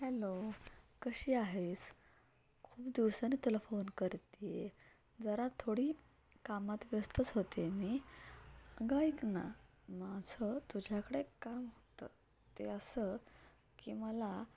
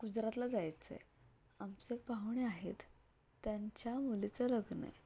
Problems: none marked